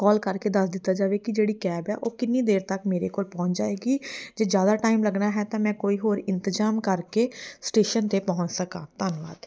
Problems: none marked